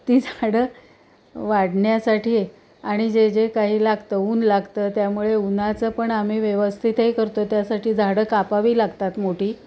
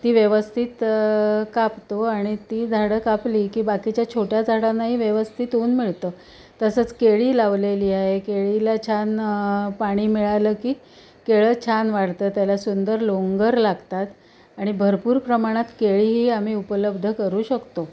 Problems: constant background noise, background conversations at intervals